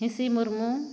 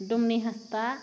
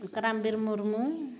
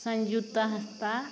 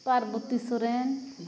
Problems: none marked